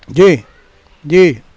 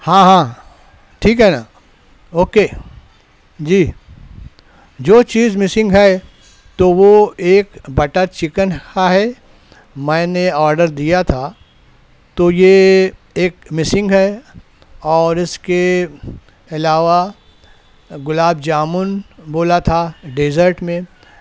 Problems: none marked